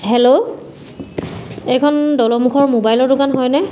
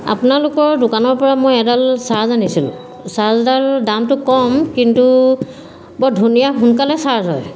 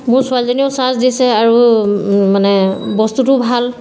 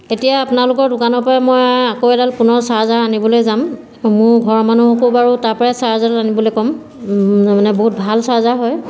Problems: none marked